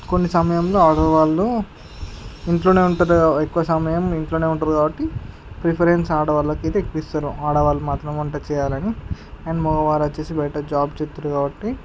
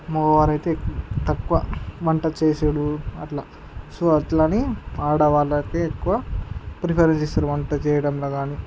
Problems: none marked